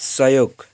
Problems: constant background noise